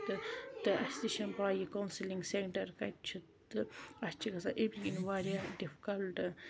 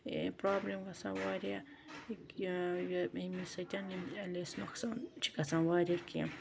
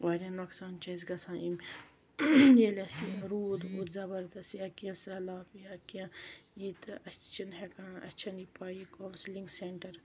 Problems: constant background noise